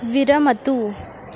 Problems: constant background noise